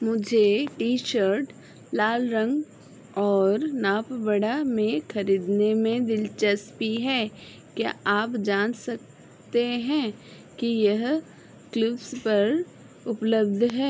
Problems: background sounds at intervals